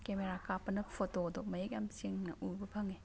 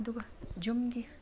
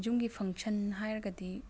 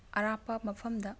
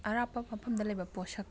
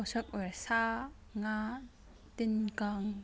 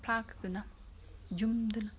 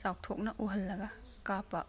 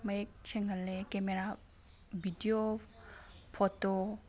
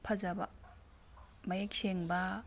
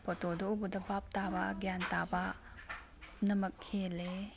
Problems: background sounds at intervals